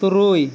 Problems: constant background noise